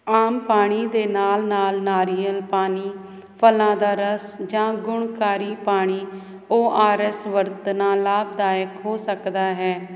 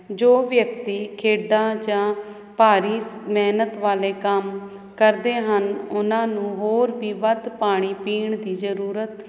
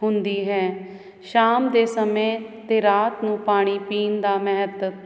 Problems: none marked